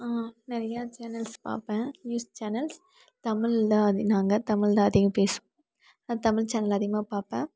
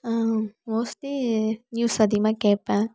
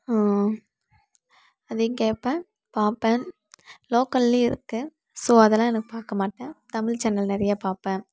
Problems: background conversations at intervals